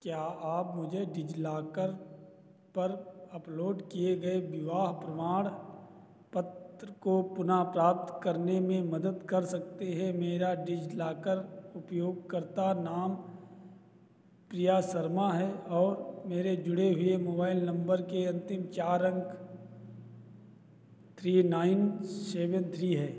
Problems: none marked